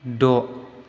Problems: constant background noise